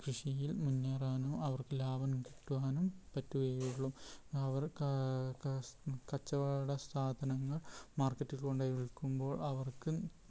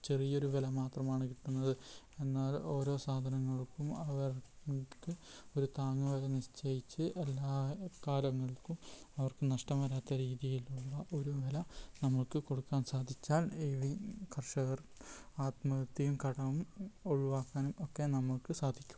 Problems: background sounds at intervals, low volume